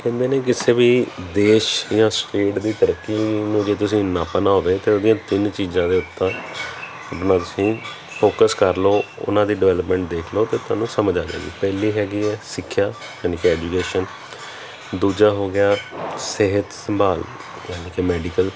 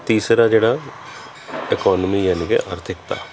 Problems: background conversations at intervals